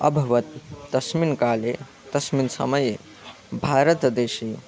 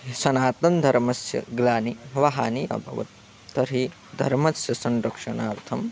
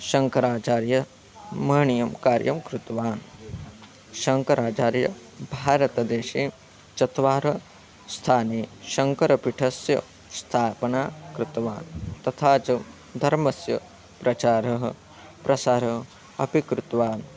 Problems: constant background noise